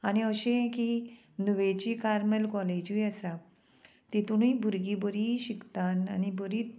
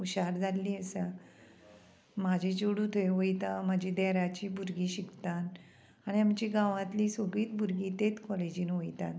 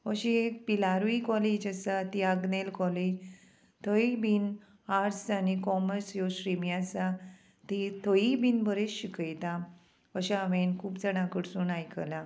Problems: constant background noise